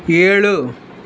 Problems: none marked